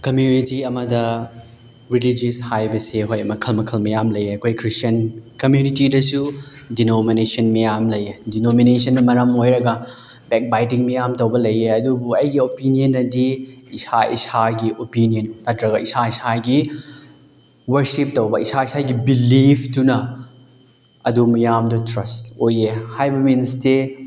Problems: background sounds at intervals